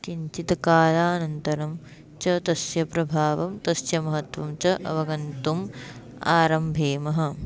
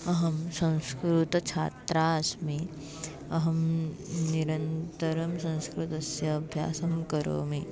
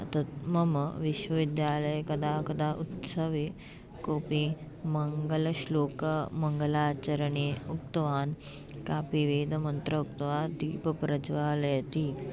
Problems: background sounds at intervals